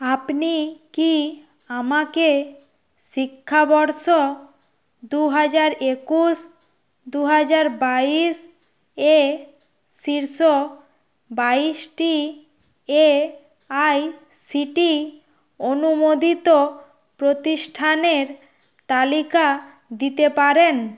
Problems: constant background noise